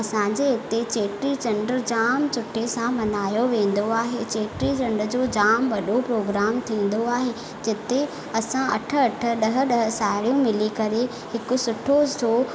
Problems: constant background noise, echo